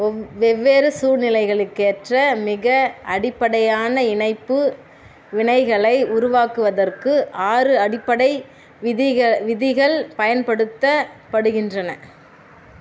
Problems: constant background noise